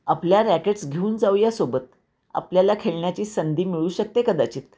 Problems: constant background noise